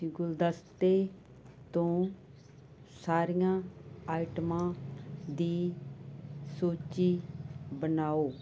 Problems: constant background noise